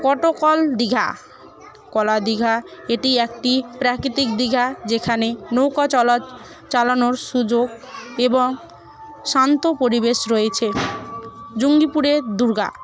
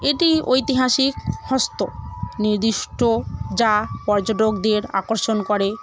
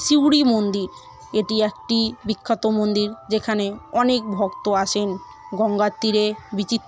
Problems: constant background noise, continuous background conversations